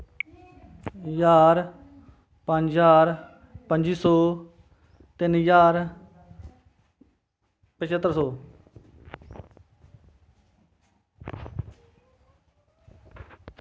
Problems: constant background noise